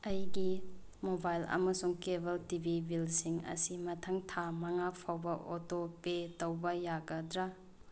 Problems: background sounds at intervals